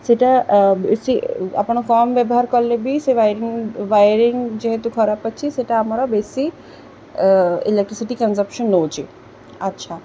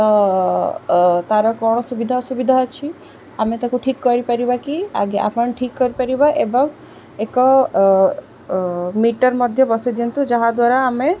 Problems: none marked